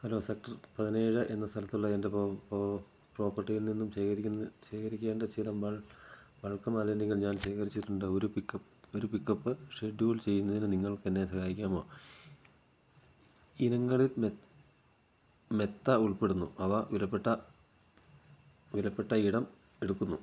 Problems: constant background noise, low volume